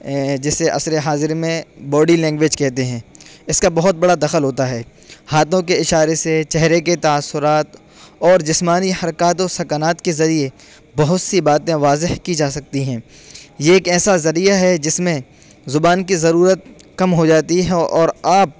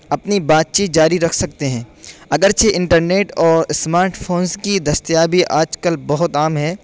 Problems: constant background noise